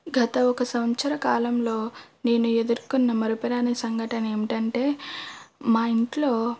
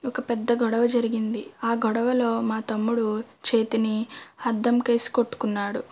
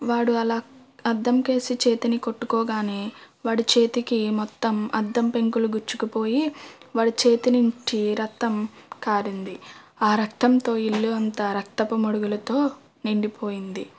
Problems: none marked